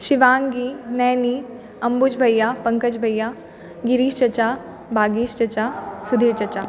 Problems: background sounds at intervals, background conversations at intervals